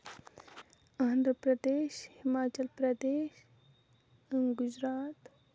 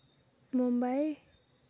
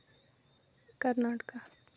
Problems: background sounds at intervals, low volume